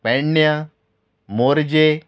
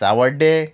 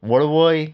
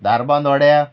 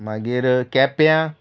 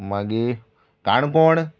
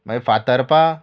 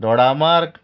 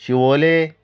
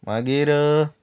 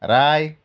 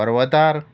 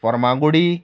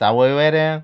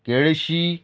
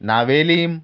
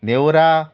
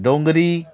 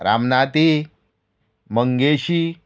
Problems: none marked